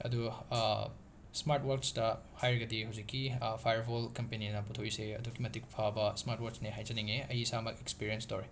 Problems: constant background noise